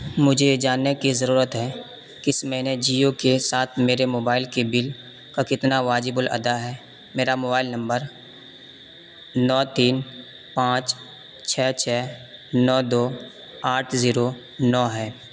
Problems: constant background noise